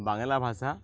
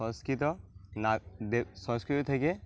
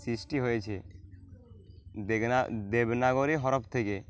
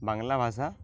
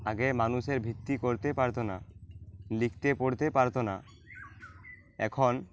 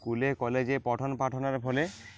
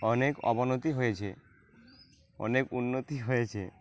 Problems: none marked